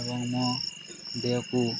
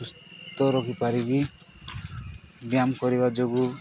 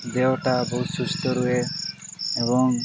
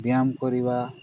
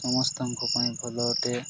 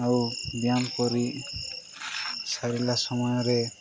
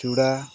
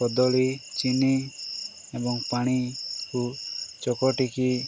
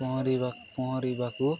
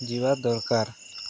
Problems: constant background noise, background conversations at intervals